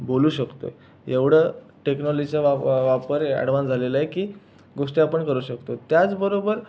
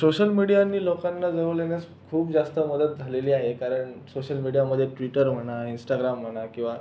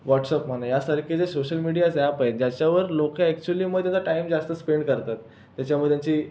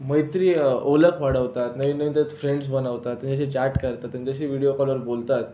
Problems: constant background noise, background conversations at intervals